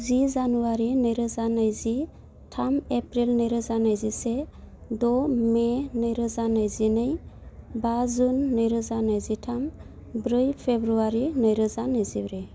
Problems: low volume